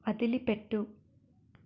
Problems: none marked